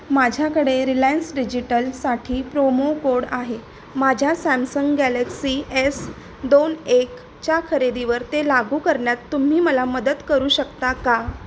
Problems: constant background noise